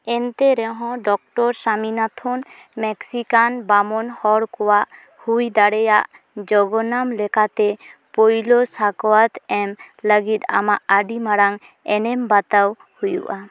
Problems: background sounds at intervals